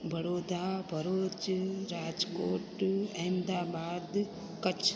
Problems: constant background noise